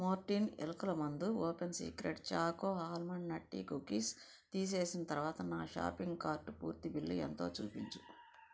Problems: low volume